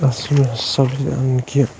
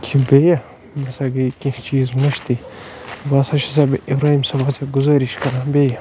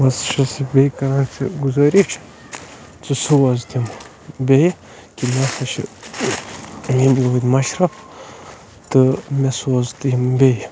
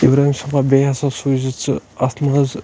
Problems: constant background noise